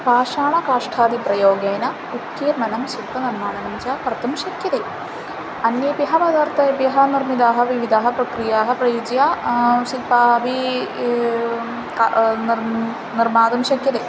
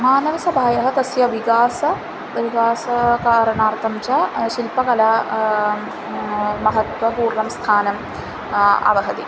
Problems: background sounds at intervals